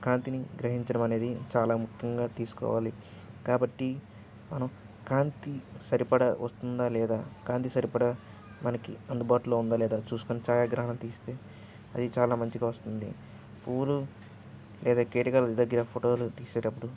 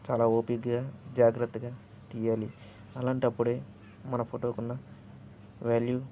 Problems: background sounds at intervals